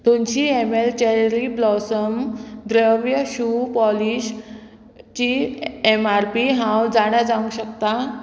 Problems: constant background noise